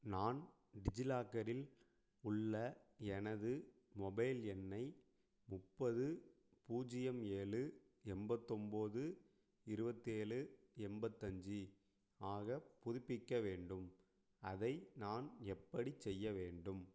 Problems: low volume